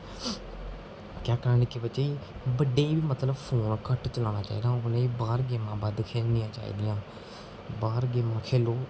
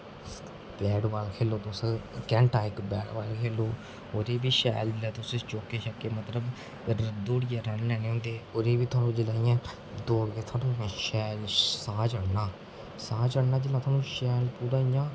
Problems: constant background noise